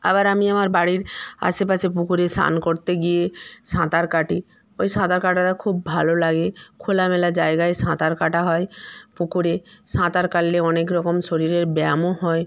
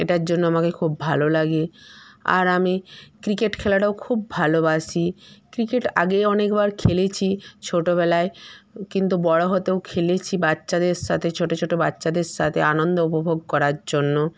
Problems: constant background noise